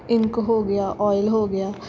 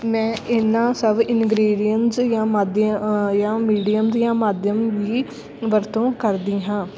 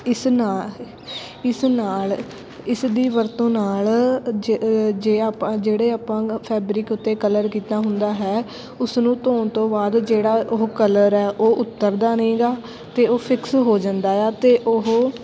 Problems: constant background noise, continuous background conversations